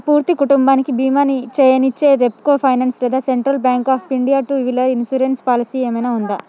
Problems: none marked